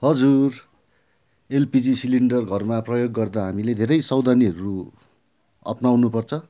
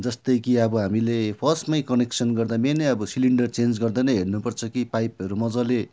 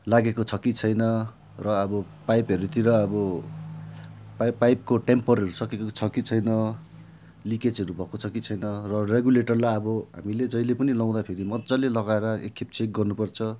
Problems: none marked